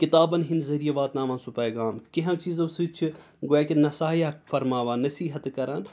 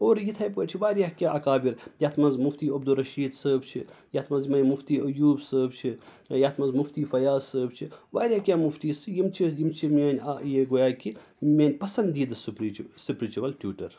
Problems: none marked